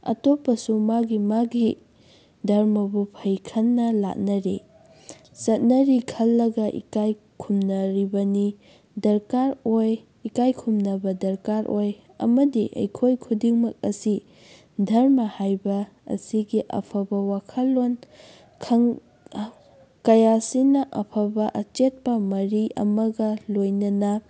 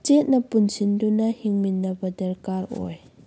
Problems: background sounds at intervals